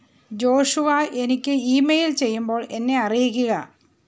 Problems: background sounds at intervals